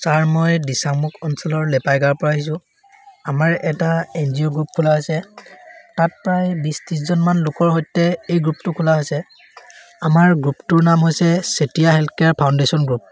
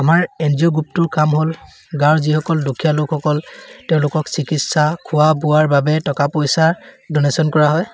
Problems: constant background noise